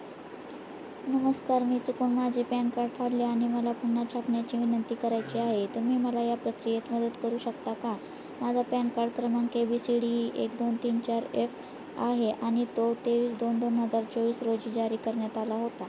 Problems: constant background noise